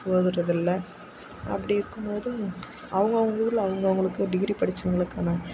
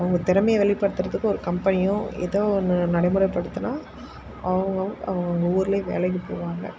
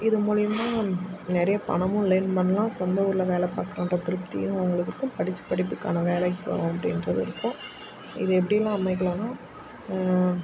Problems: constant background noise